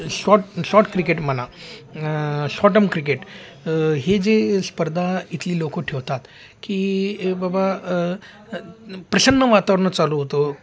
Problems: constant background noise, continuous background conversations